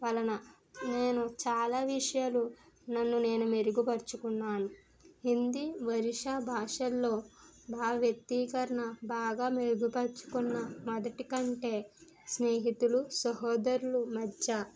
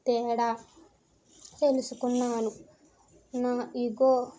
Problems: constant background noise